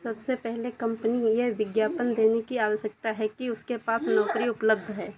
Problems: none marked